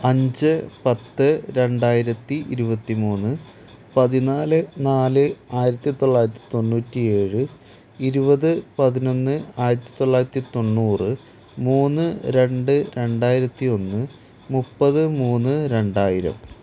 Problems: constant background noise, low volume